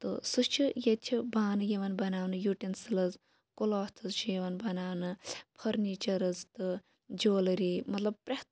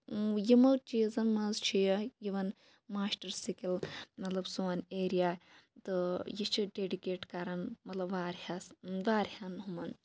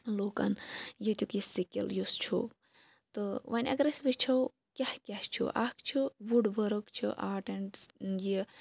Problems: none marked